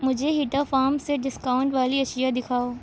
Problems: constant background noise